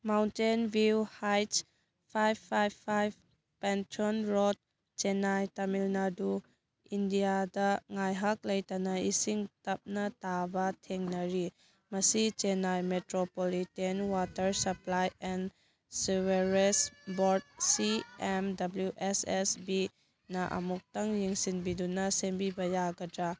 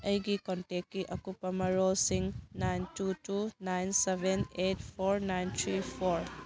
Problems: background conversations at intervals